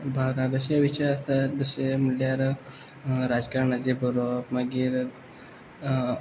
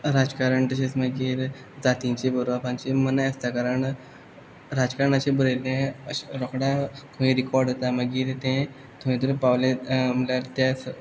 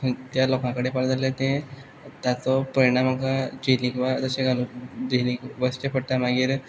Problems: background sounds at intervals